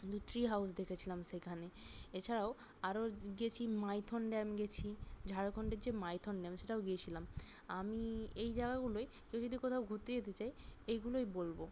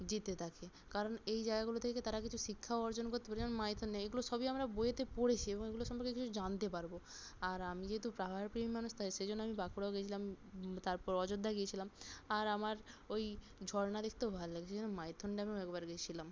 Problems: none marked